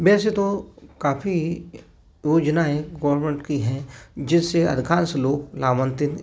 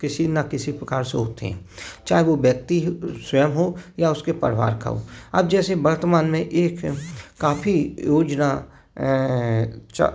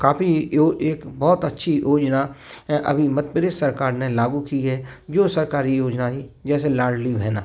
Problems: constant background noise